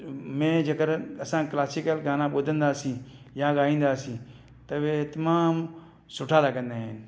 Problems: none marked